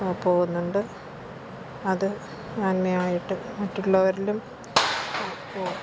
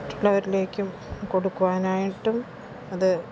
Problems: constant background noise